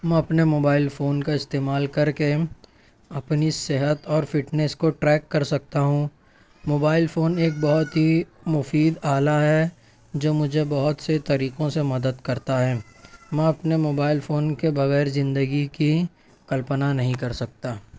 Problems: background sounds at intervals